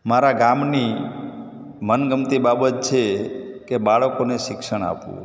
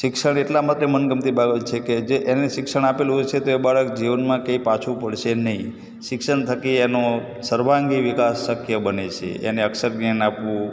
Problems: background sounds at intervals